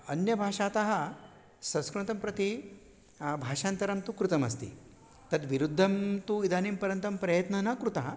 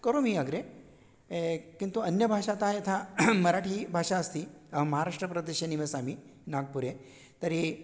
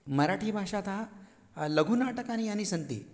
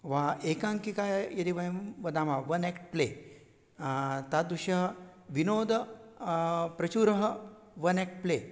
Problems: none marked